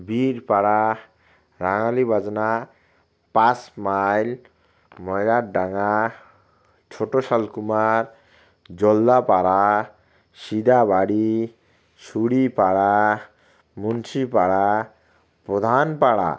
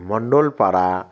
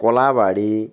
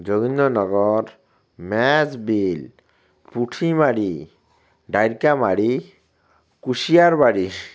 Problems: constant background noise